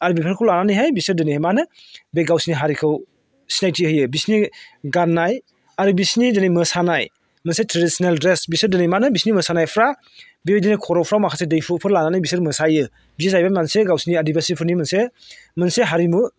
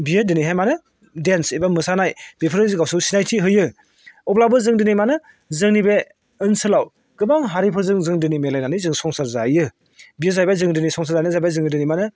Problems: constant background noise